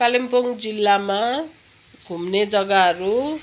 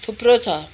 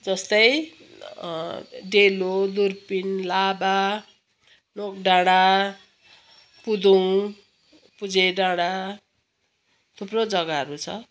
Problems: background sounds at intervals, background conversations at intervals